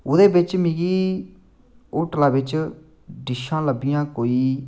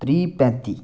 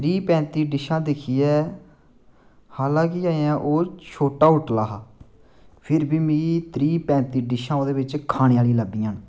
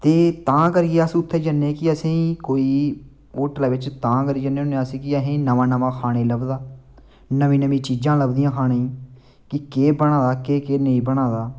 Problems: none marked